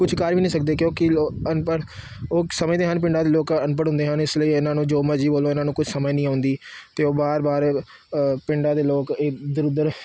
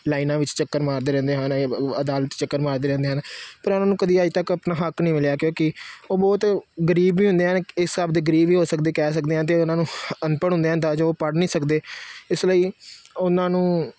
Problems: constant background noise